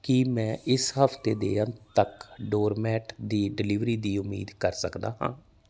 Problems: background sounds at intervals